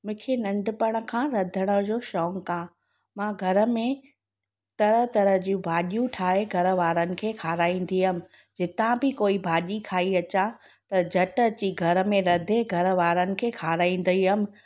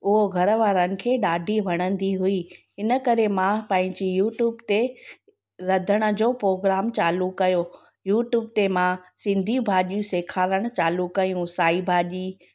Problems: constant background noise